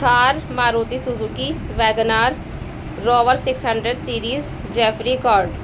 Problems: constant background noise